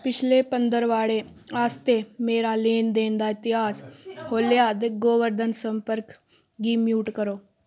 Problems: constant background noise